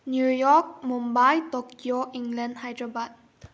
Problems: low volume